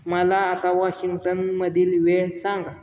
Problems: constant background noise, background conversations at intervals